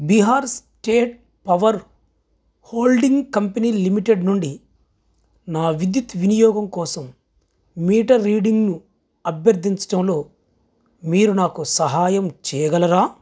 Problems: background sounds at intervals